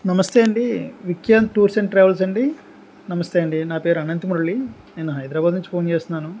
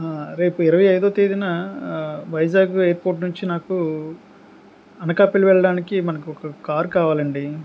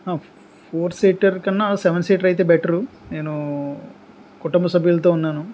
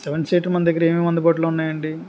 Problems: constant background noise